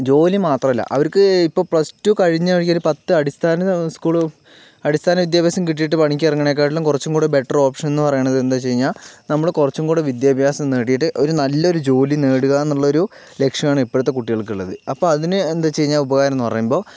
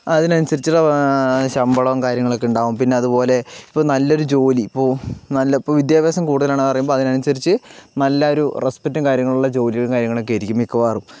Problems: background sounds at intervals, low volume